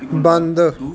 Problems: background sounds at intervals